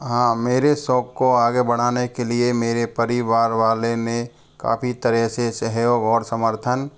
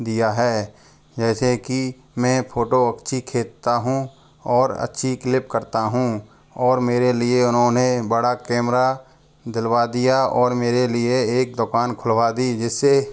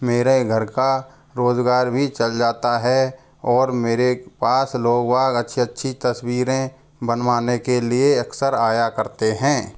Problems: background sounds at intervals